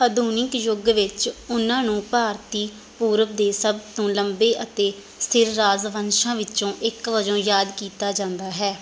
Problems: background sounds at intervals